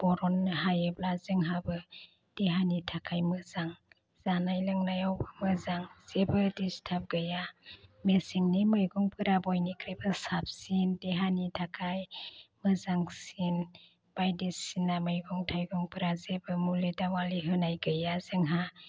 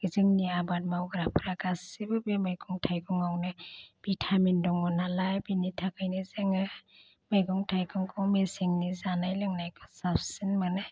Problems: constant background noise